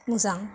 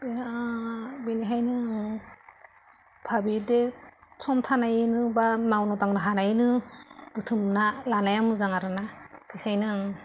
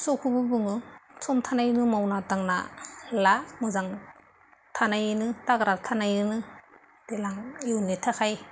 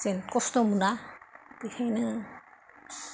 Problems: constant background noise